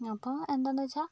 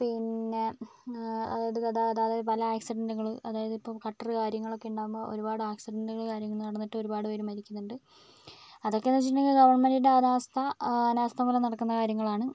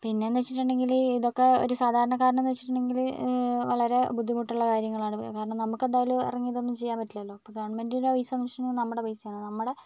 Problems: low volume